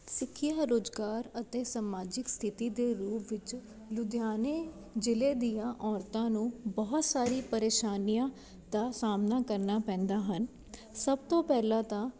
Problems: none marked